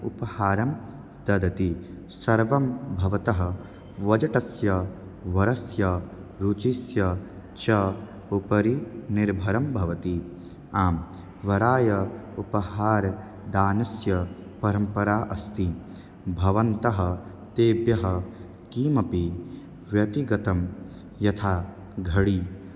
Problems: constant background noise